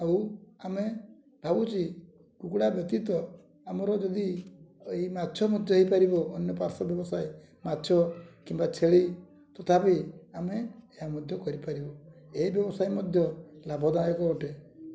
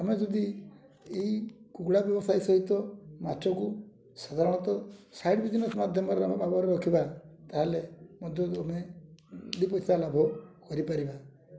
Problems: low volume